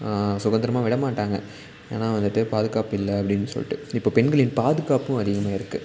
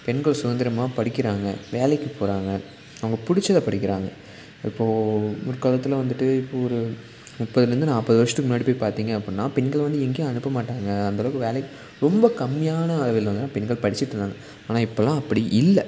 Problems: constant background noise